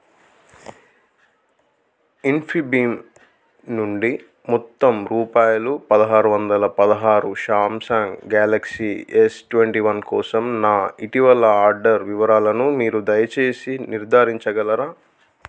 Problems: none marked